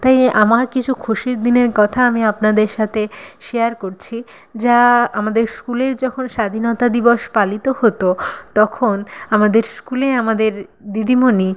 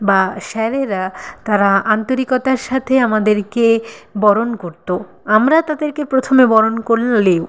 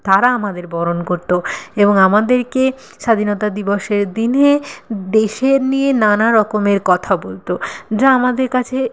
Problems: none marked